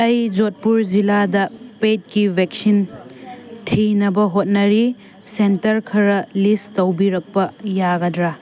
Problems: constant background noise